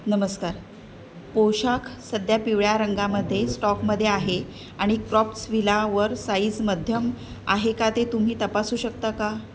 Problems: none marked